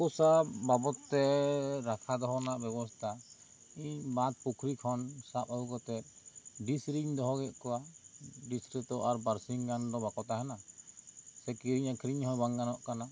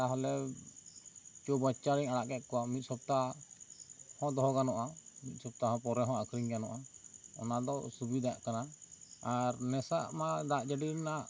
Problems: constant background noise